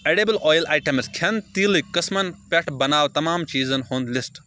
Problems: background sounds at intervals